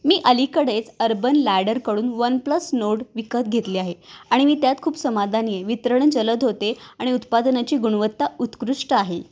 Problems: background sounds at intervals